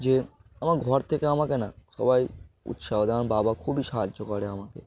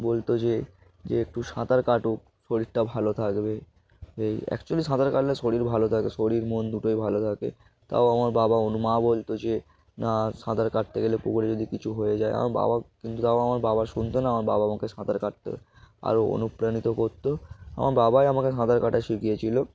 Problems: none marked